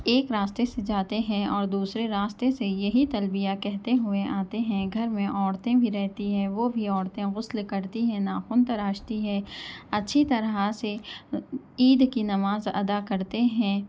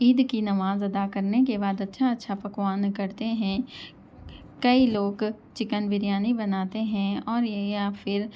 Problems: background sounds at intervals